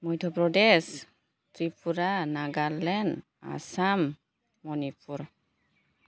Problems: none marked